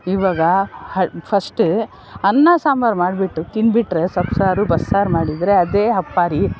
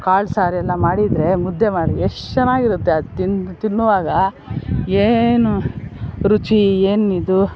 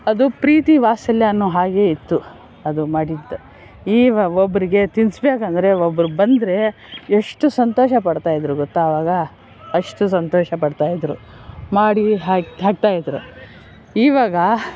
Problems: background sounds at intervals